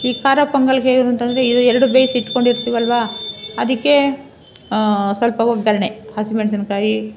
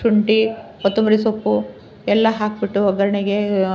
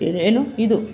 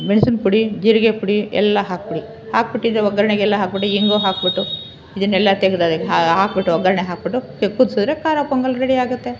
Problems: none marked